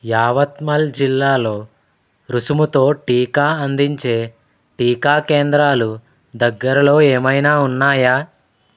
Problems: none marked